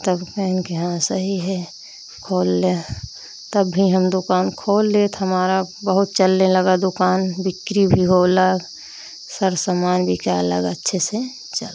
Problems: none marked